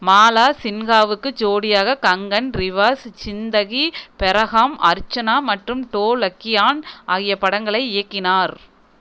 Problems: none marked